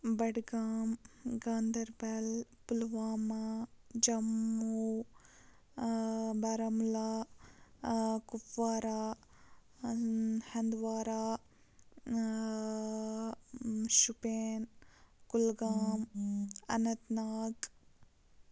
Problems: constant background noise, low volume